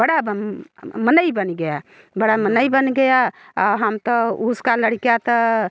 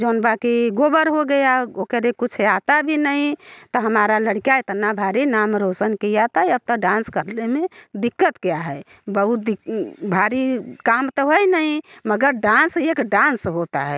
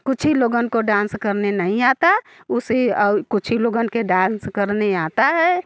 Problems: background sounds at intervals